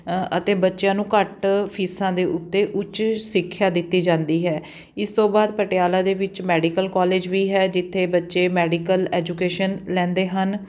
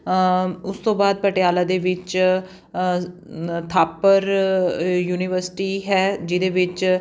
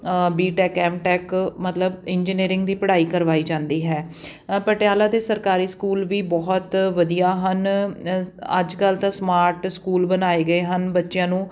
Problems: background sounds at intervals